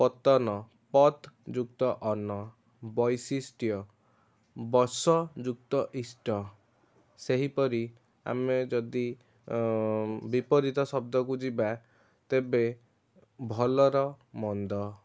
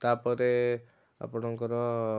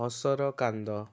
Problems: constant background noise, continuous background conversations